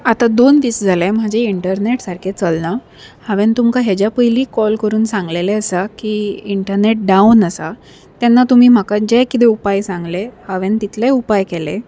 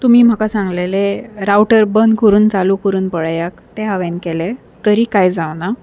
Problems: none marked